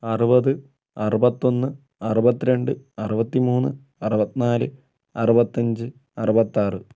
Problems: none marked